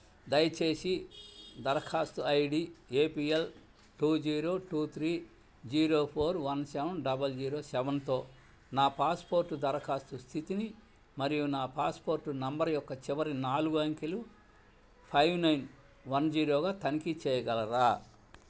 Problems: low volume